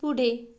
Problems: none marked